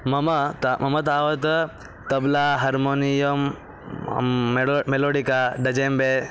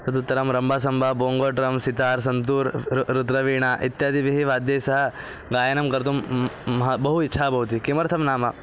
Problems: background conversations at intervals